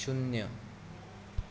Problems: constant background noise